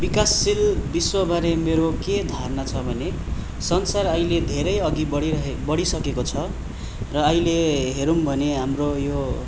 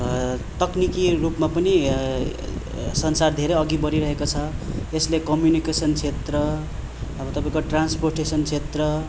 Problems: constant background noise